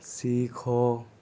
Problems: none marked